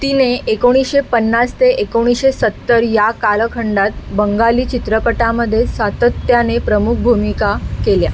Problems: constant background noise